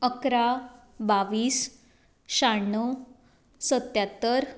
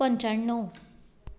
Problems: background sounds at intervals